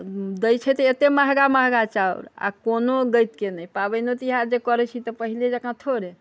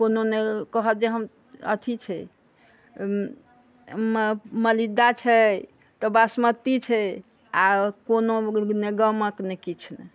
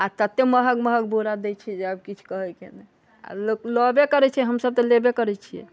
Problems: background conversations at intervals